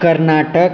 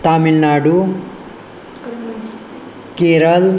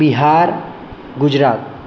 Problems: none marked